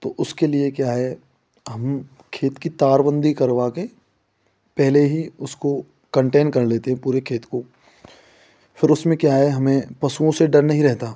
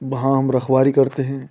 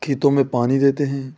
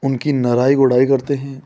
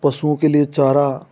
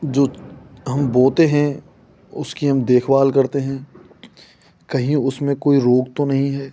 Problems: constant background noise